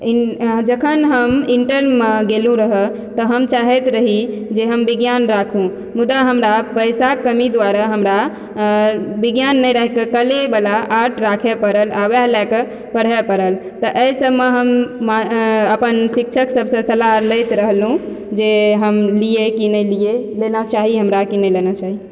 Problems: background sounds at intervals